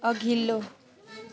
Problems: none marked